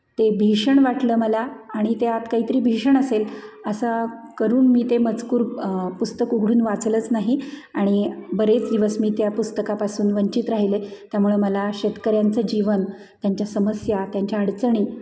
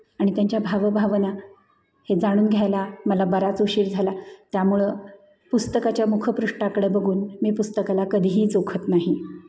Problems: constant background noise, echo